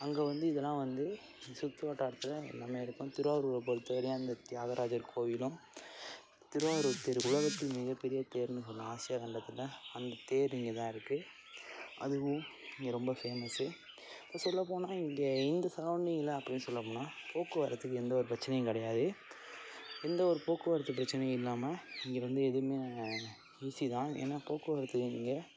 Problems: constant background noise